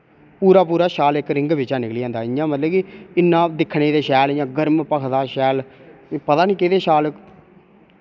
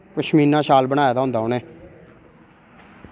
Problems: none marked